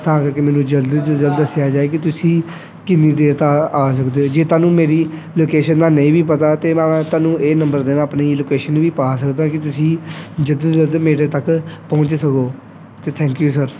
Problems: none marked